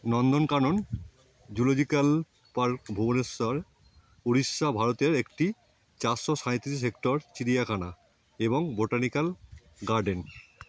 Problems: none marked